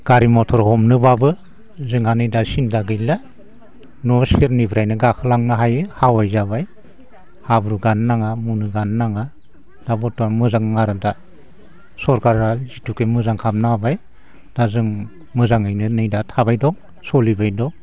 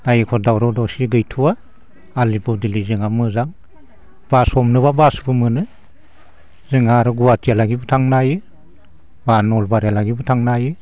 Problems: constant background noise